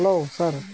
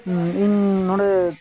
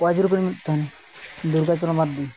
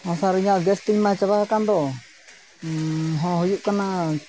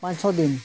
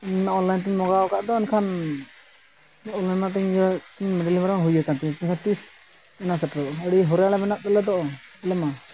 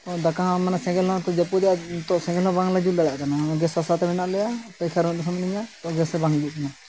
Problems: constant background noise